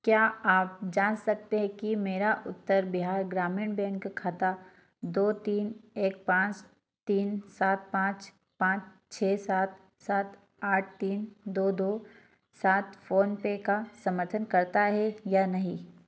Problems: none marked